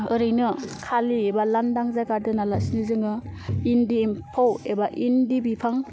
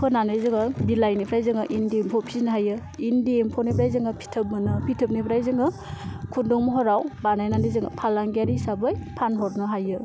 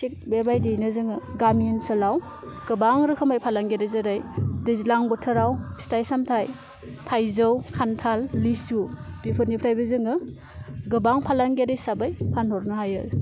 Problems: constant background noise